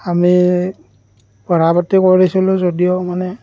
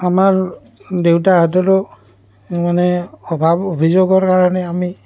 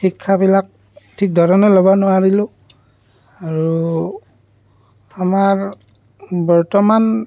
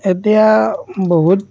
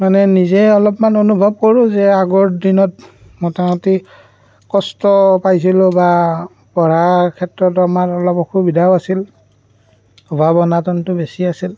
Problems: background sounds at intervals, background conversations at intervals